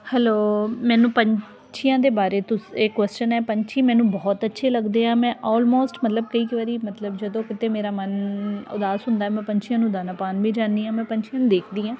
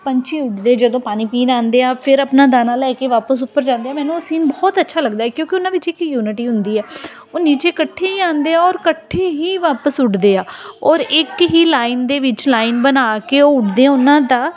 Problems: none marked